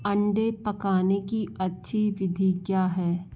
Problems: constant background noise